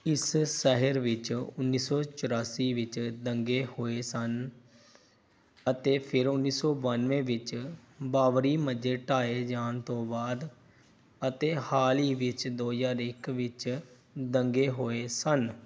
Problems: background sounds at intervals